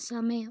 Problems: low volume